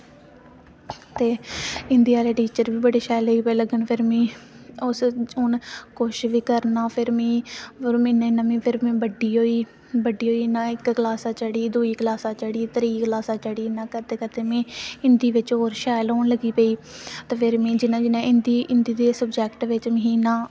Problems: constant background noise